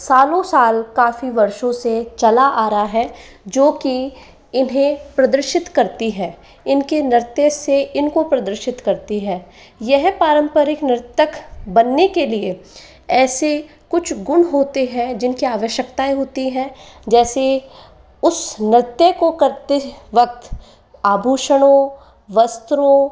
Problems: continuous background conversations